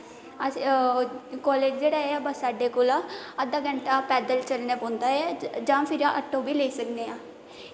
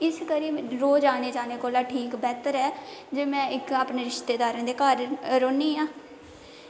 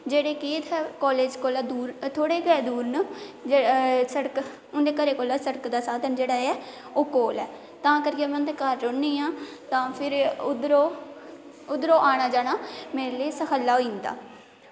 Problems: constant background noise, echo